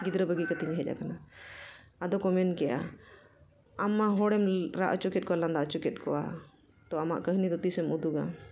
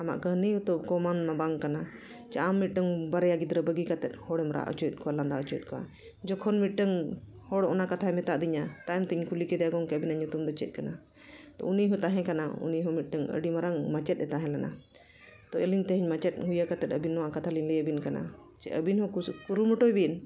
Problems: none marked